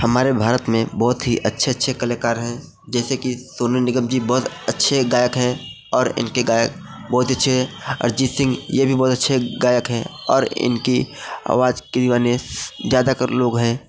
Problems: background sounds at intervals